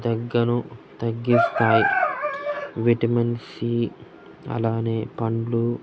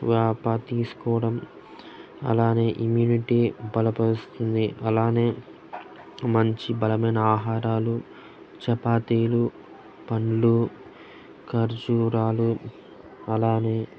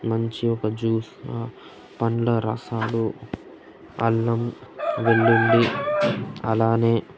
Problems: constant background noise, background conversations at intervals